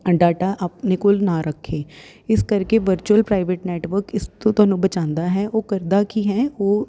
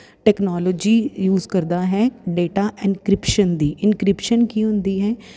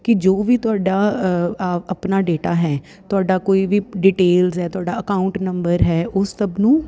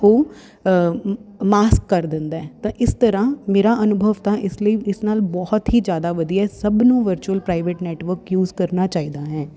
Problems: none marked